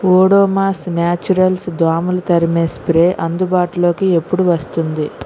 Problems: constant background noise